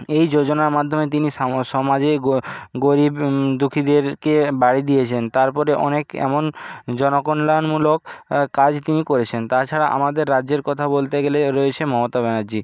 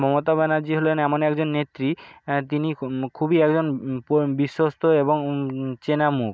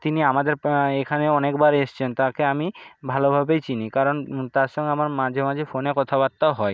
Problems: background sounds at intervals